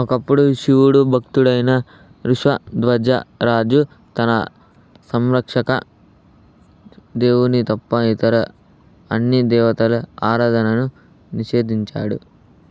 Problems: none marked